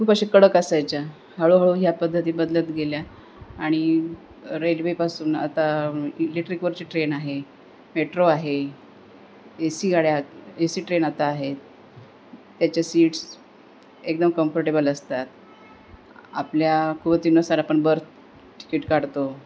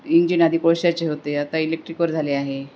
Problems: none marked